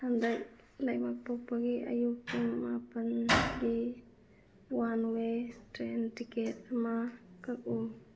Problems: none marked